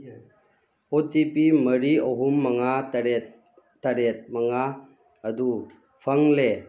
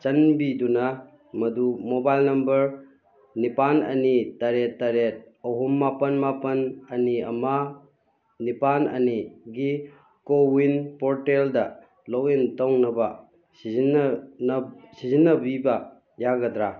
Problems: none marked